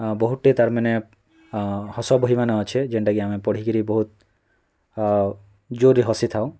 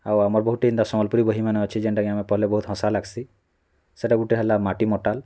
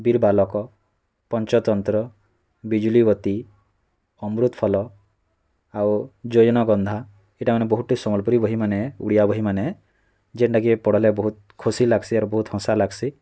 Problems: constant background noise, continuous background conversations